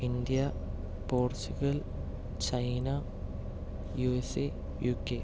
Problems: none marked